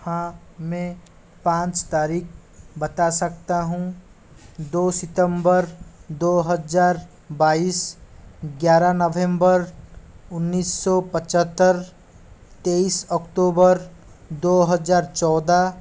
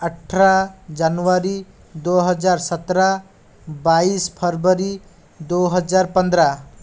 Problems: constant background noise